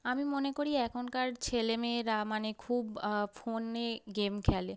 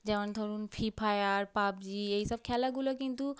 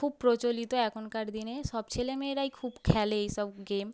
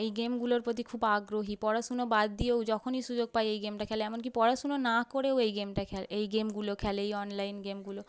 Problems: none marked